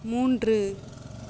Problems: constant background noise